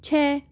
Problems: constant background noise